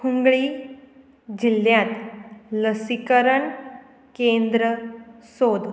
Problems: constant background noise